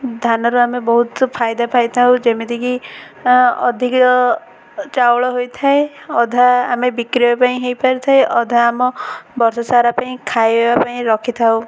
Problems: constant background noise